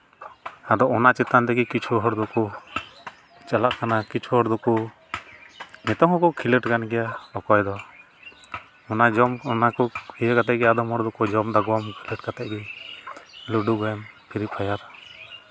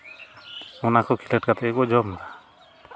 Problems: constant background noise